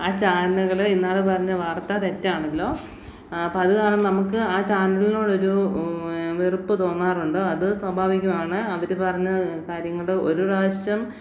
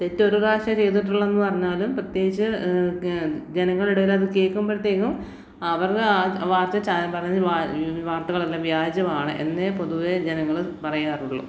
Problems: none marked